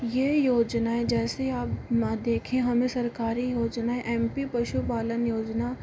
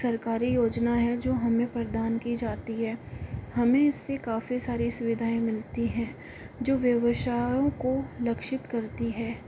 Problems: constant background noise